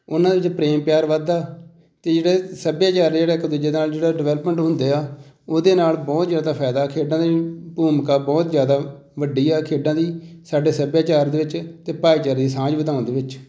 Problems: none marked